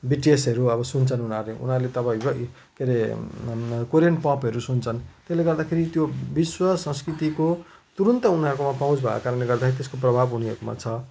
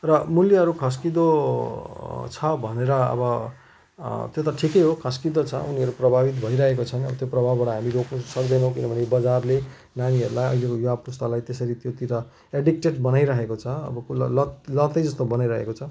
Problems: constant background noise